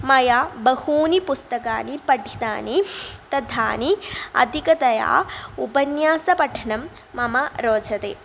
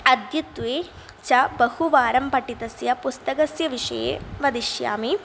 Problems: none marked